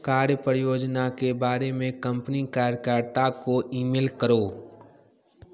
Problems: background sounds at intervals, continuous background conversations